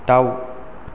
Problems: none marked